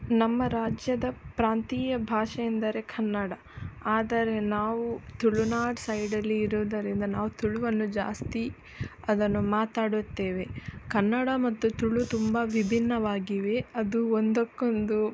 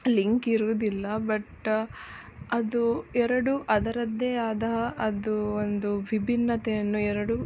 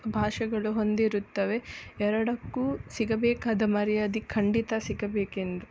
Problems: background sounds at intervals